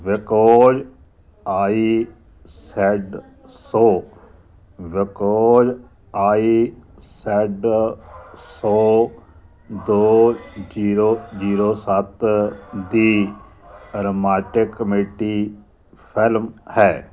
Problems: constant background noise